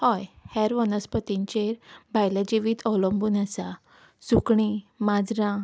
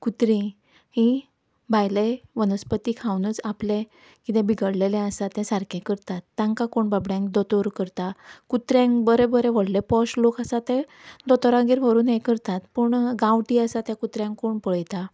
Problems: background sounds at intervals